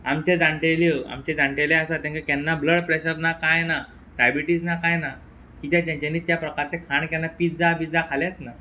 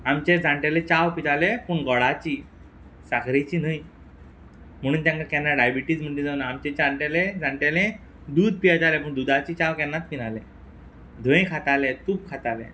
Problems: background sounds at intervals